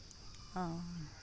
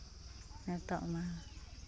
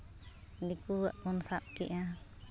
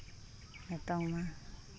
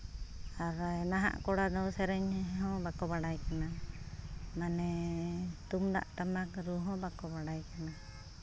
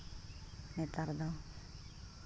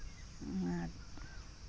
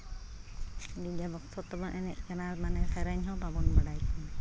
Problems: constant background noise